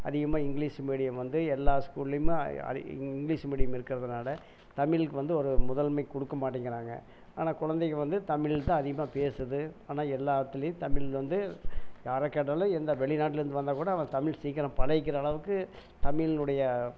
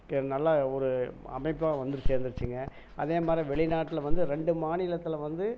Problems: none marked